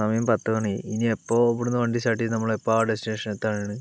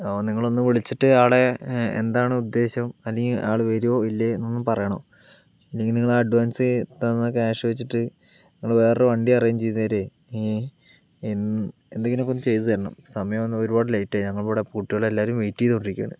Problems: background sounds at intervals